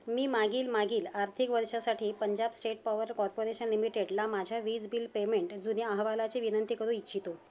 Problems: background sounds at intervals